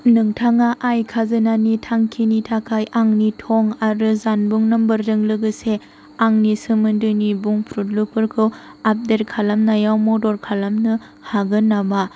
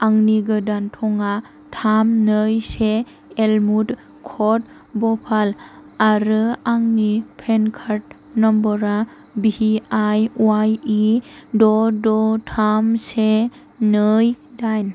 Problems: constant background noise